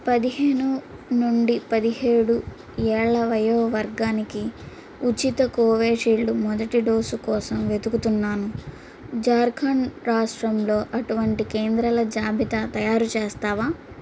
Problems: constant background noise